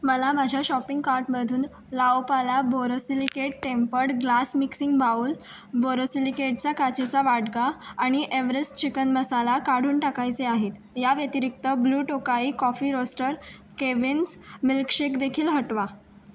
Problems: background sounds at intervals